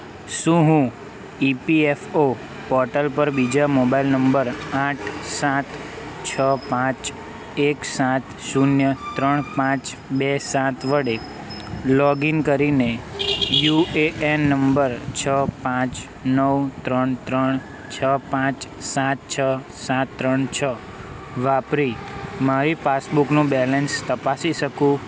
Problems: constant background noise